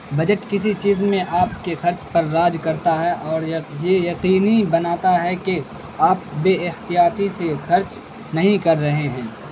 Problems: constant background noise